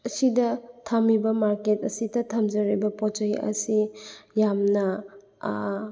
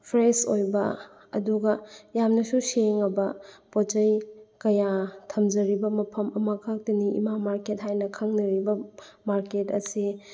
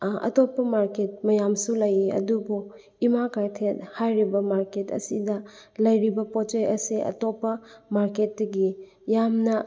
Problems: background sounds at intervals